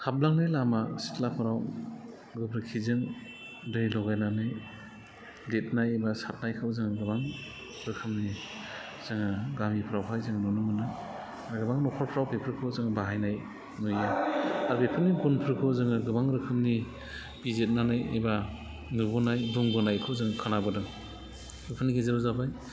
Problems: low volume